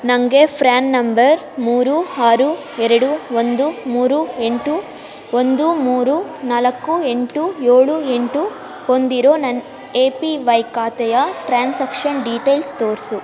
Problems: constant background noise